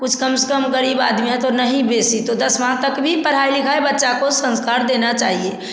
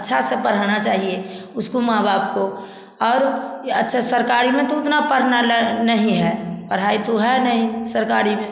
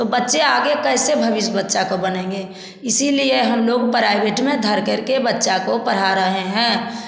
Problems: constant background noise